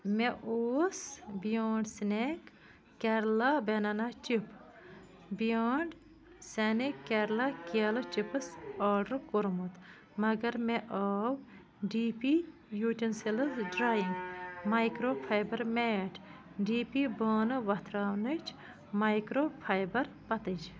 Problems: background sounds at intervals